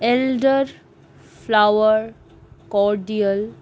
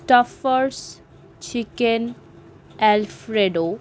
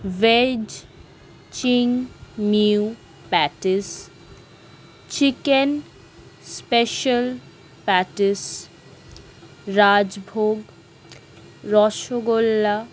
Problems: none marked